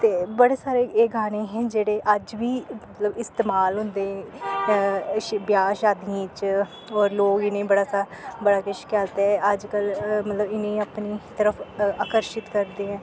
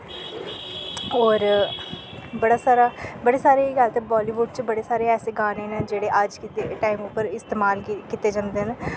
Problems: constant background noise